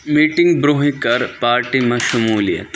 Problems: constant background noise